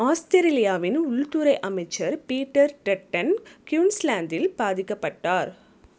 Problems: none marked